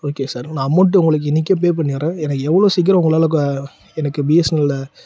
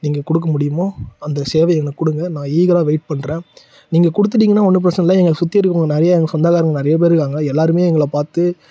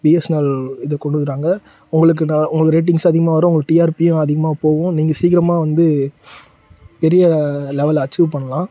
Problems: none marked